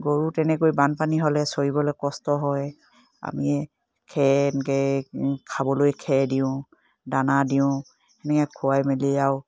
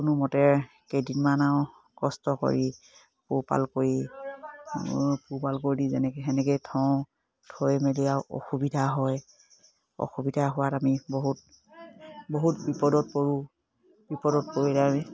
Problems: none marked